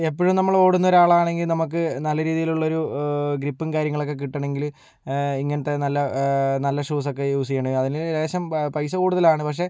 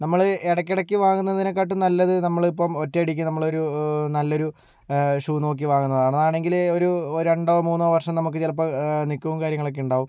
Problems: low volume